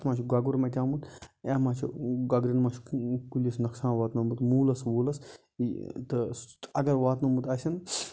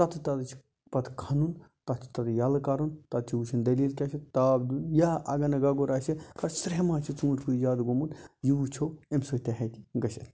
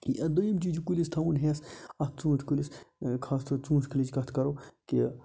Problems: constant background noise